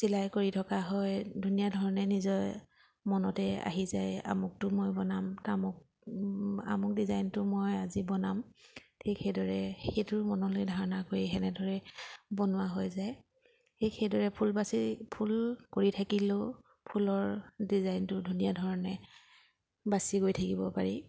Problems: background sounds at intervals